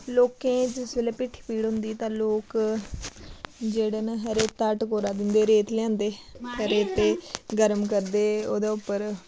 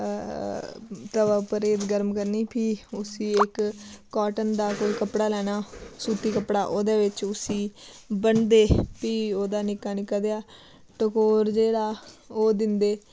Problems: background sounds at intervals